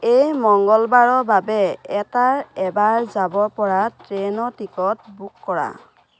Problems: constant background noise